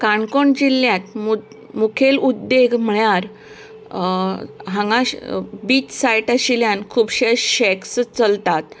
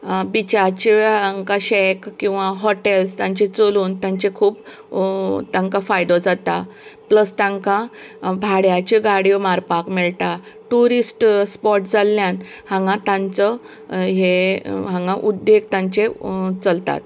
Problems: background sounds at intervals